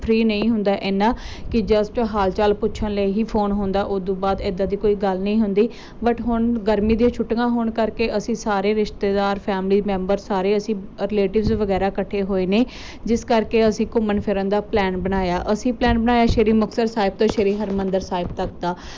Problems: none marked